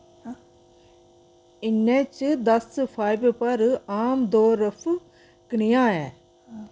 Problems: none marked